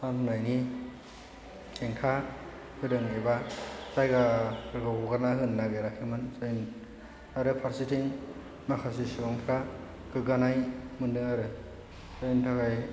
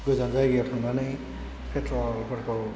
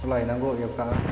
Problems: constant background noise, low volume